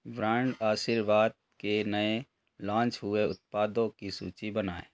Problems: none marked